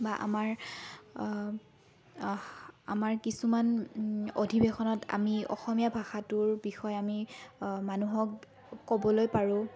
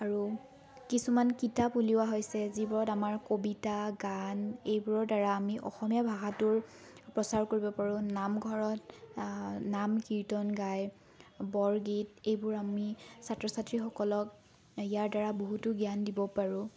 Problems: background sounds at intervals, background conversations at intervals